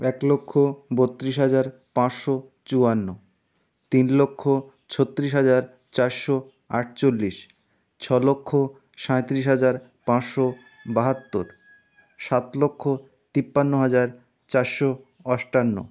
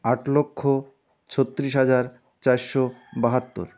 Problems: background sounds at intervals